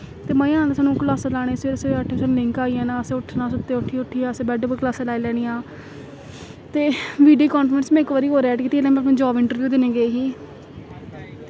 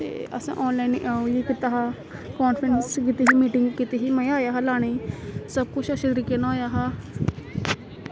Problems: constant background noise